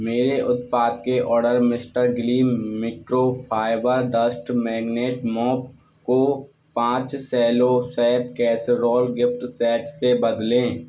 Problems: none marked